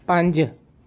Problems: none marked